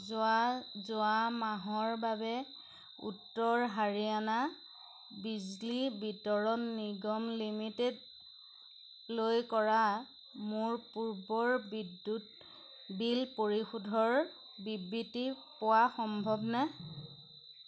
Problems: constant background noise